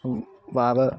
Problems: none marked